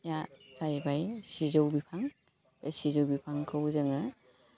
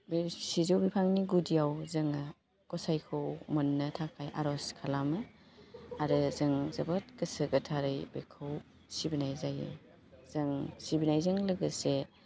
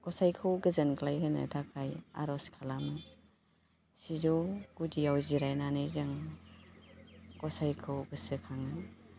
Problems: constant background noise